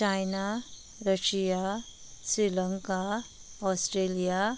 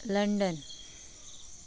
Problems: none marked